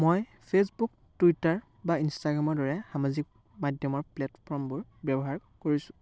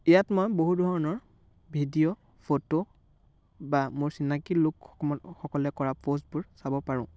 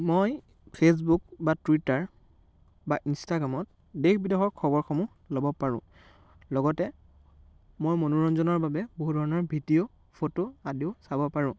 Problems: background sounds at intervals, background conversations at intervals